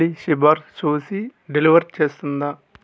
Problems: background sounds at intervals